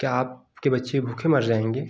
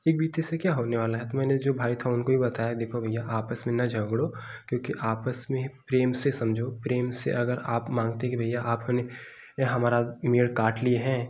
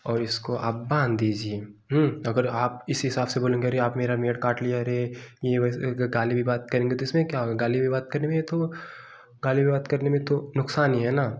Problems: none marked